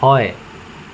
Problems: constant background noise